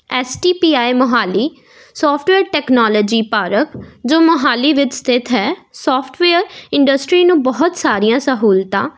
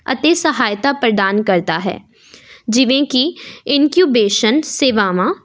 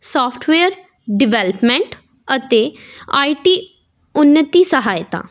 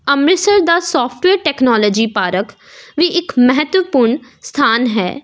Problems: none marked